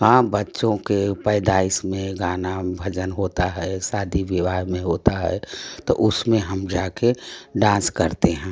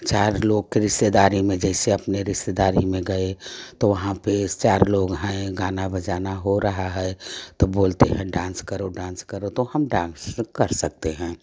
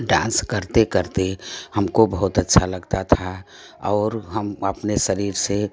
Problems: none marked